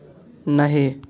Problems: constant background noise